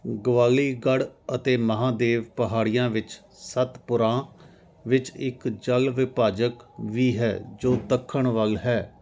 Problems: none marked